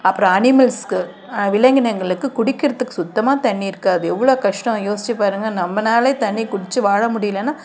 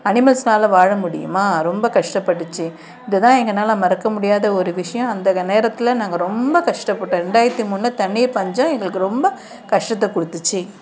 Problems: constant background noise